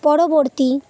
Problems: none marked